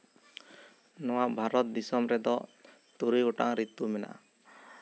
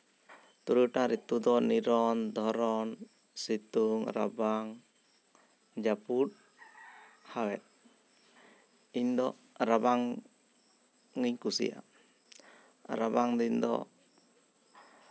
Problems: constant background noise